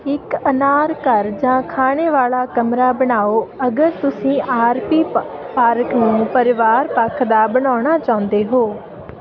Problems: constant background noise